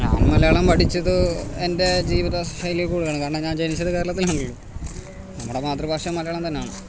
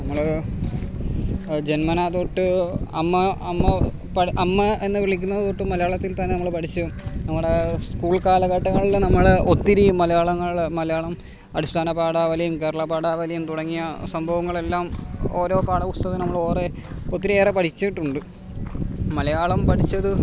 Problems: constant background noise